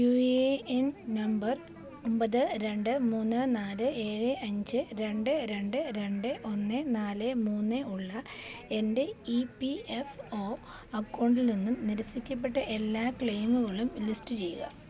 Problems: none marked